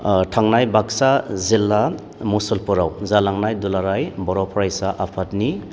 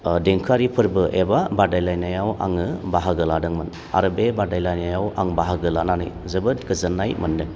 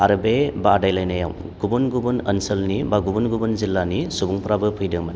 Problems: low volume